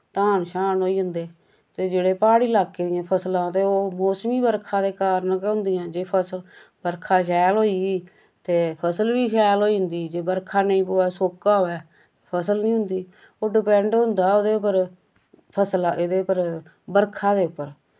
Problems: constant background noise